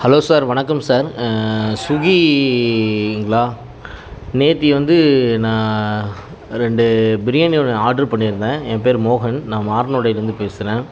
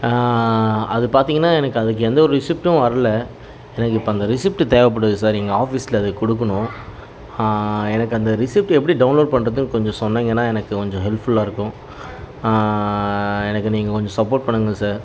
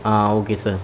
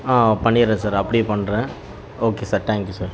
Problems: constant background noise